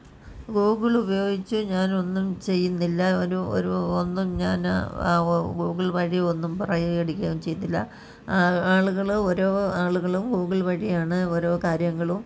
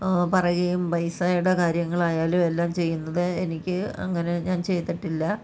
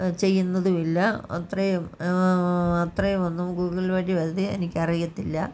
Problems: background conversations at intervals